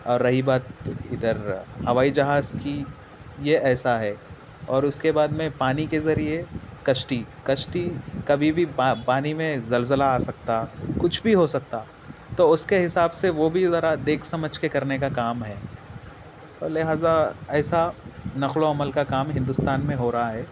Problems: constant background noise, low volume